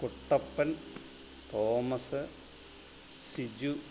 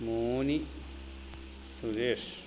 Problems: constant background noise